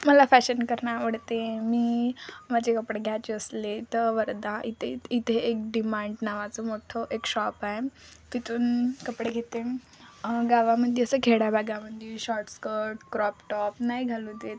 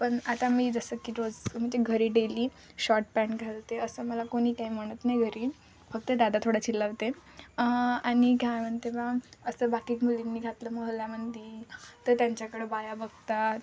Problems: none marked